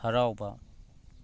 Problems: background sounds at intervals